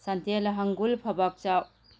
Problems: none marked